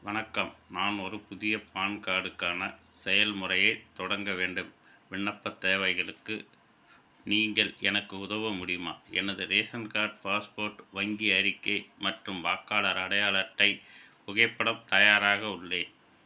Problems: constant background noise